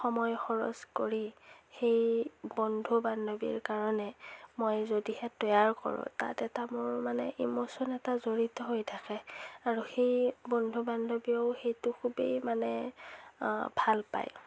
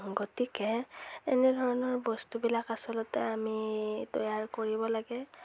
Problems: none marked